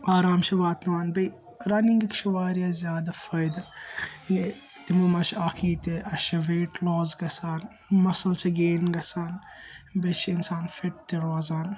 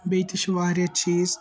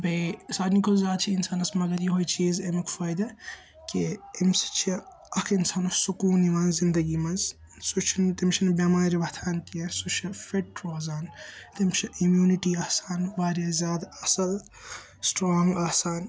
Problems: constant background noise